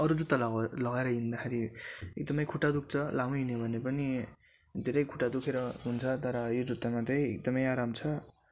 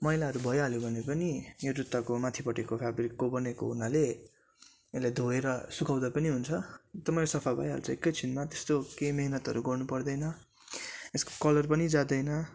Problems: constant background noise